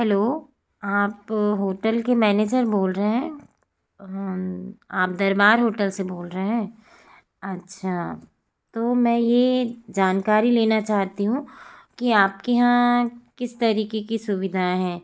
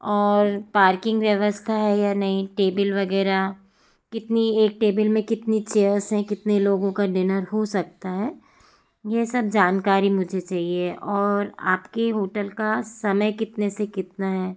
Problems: constant background noise